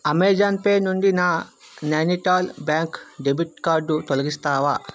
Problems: background sounds at intervals, background conversations at intervals